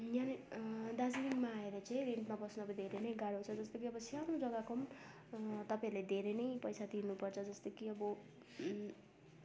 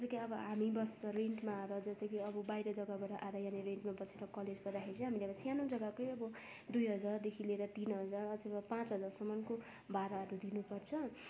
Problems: constant background noise, background conversations at intervals